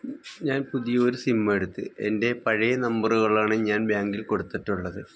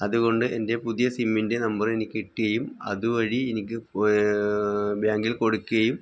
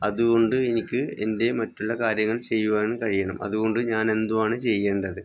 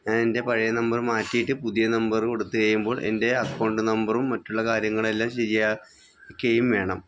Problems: none marked